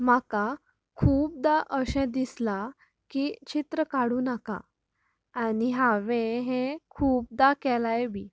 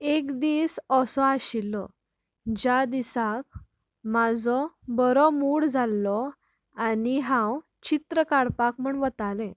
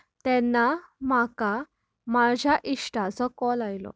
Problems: background conversations at intervals